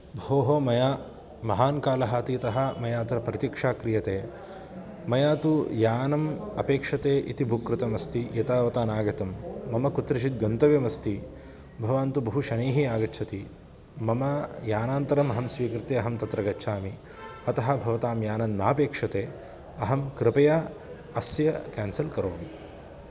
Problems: constant background noise